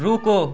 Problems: continuous background conversations